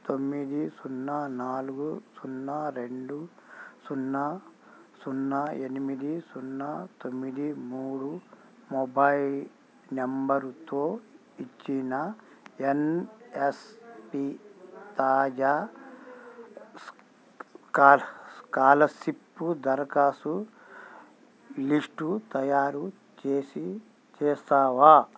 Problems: constant background noise, background conversations at intervals